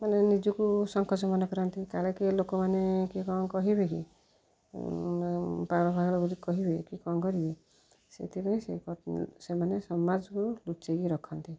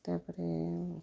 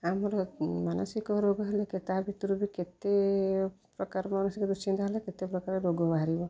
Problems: low volume